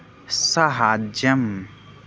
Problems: none marked